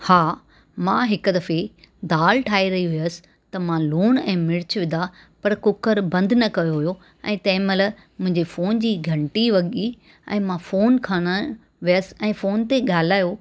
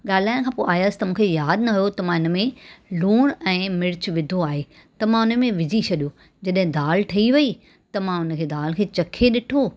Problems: none marked